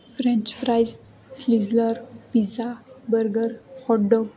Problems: constant background noise